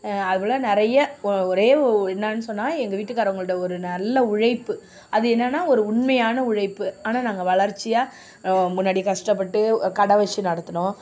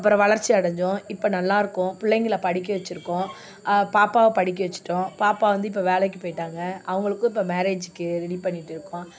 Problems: background sounds at intervals